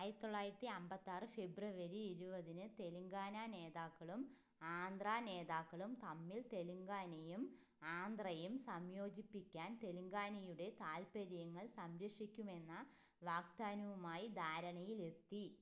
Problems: low volume